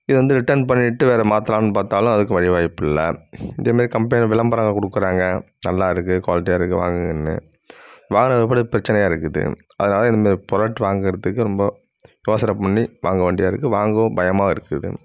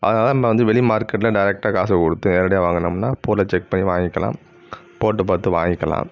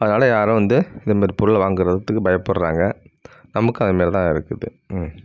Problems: none marked